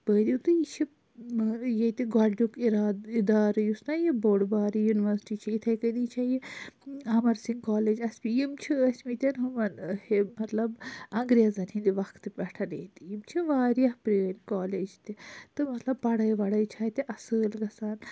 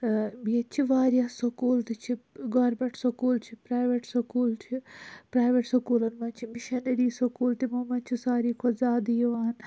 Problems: none marked